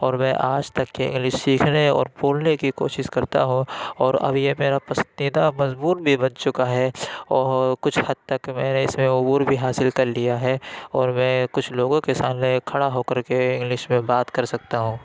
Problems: constant background noise